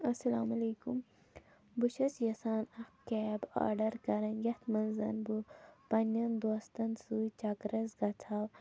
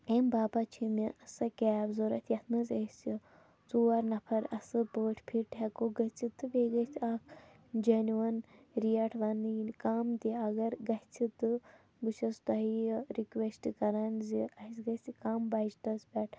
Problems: low volume